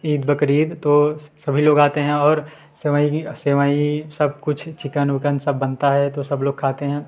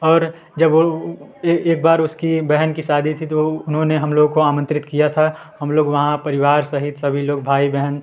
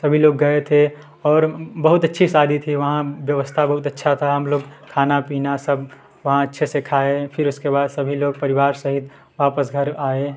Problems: continuous background conversations